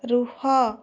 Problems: none marked